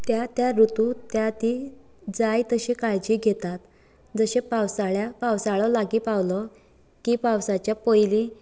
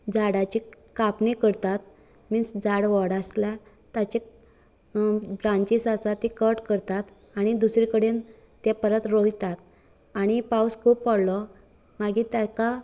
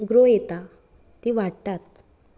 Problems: none marked